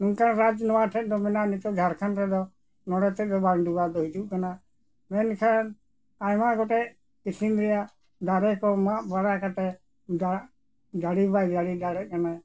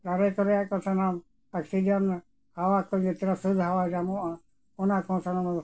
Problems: background sounds at intervals, background conversations at intervals